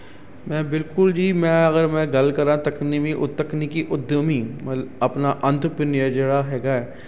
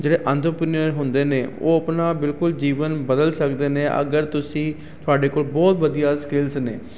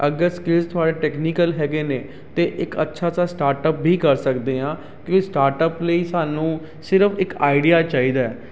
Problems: constant background noise